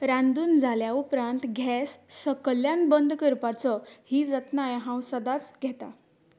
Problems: none marked